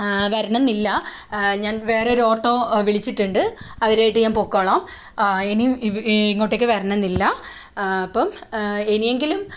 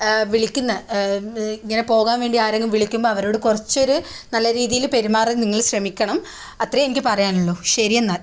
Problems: none marked